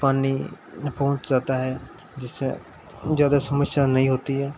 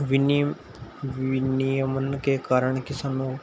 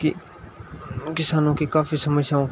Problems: none marked